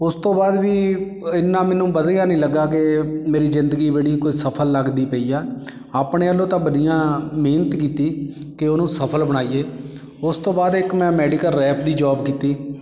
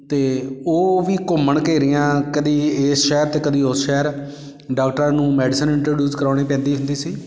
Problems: background sounds at intervals